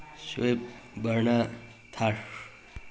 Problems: none marked